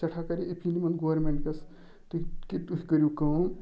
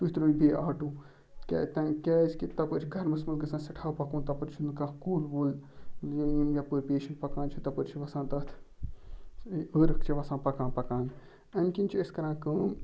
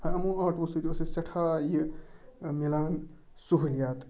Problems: background sounds at intervals